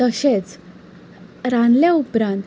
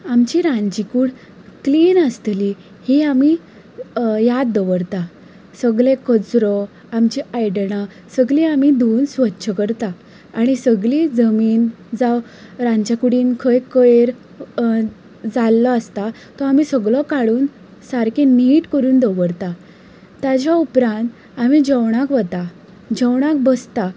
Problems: constant background noise